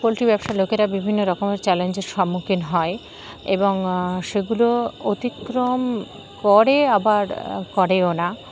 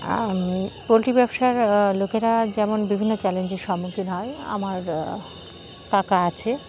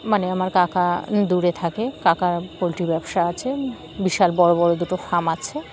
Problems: none marked